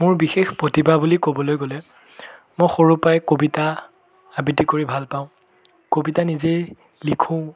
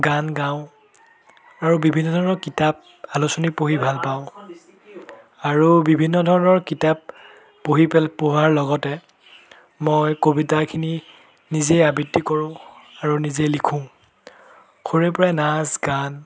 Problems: background sounds at intervals, background conversations at intervals